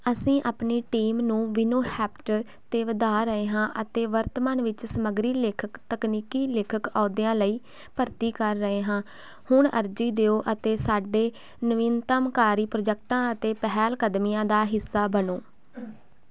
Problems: constant background noise